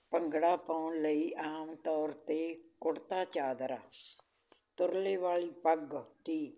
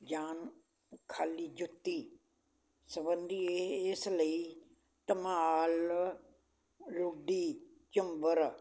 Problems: none marked